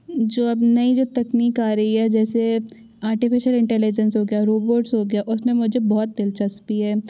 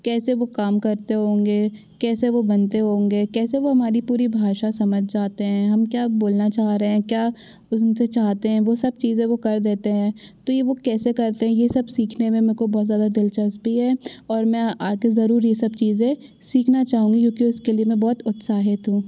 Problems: none marked